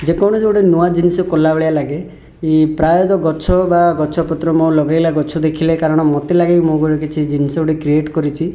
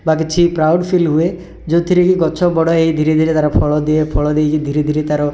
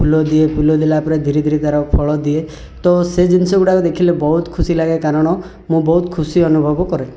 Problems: none marked